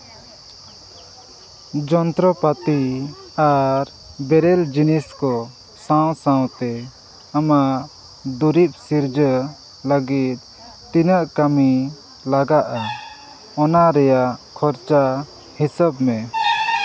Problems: background sounds at intervals